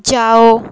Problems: constant background noise, continuous background conversations